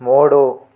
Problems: none marked